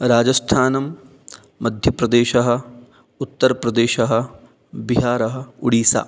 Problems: none marked